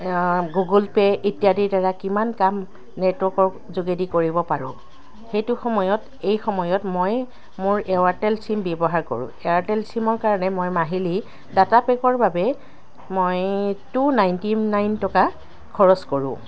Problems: constant background noise